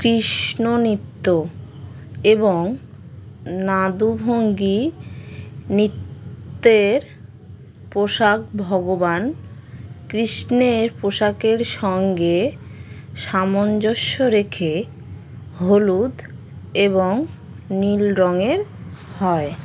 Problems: constant background noise